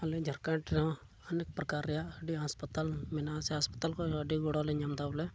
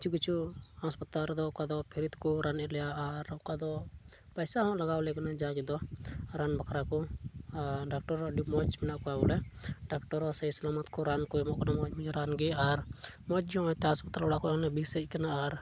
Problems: none marked